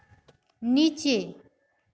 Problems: constant background noise